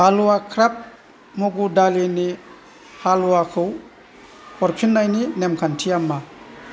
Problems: constant background noise